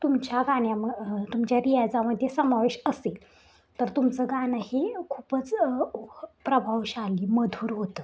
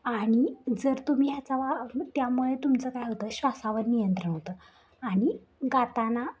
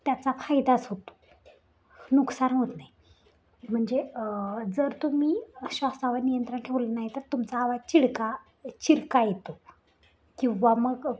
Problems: continuous background conversations